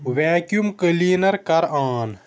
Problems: none marked